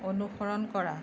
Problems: none marked